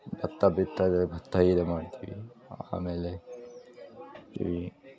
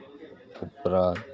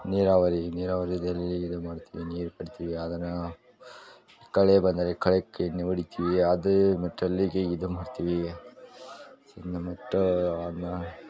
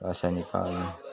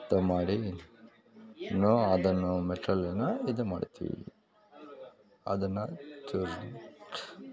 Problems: background sounds at intervals